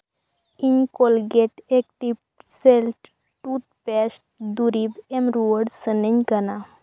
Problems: none marked